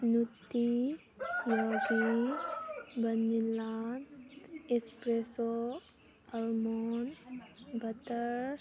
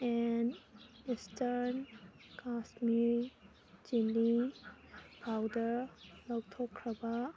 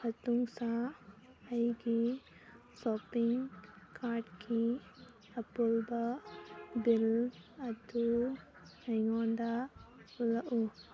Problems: background sounds at intervals